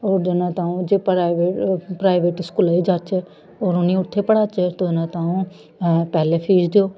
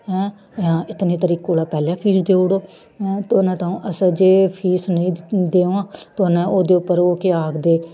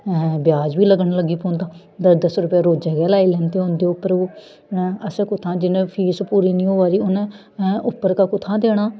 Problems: none marked